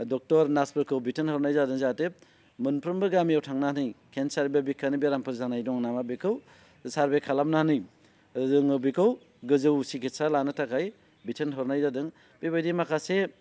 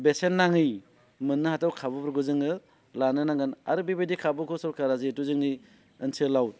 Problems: constant background noise